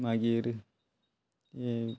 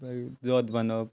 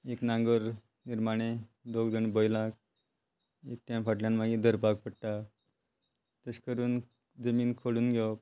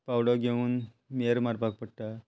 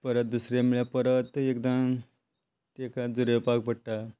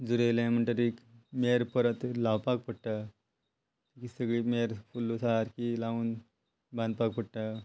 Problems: constant background noise